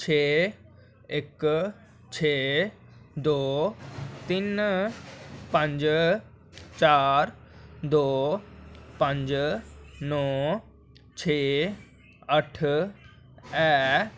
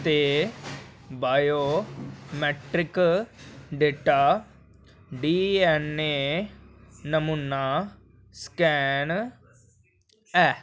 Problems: none marked